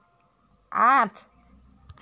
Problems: background sounds at intervals